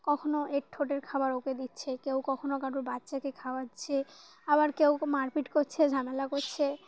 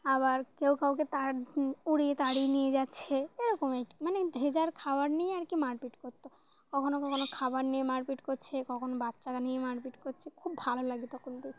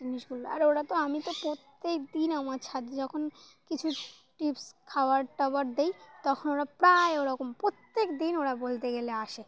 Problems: none marked